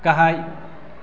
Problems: constant background noise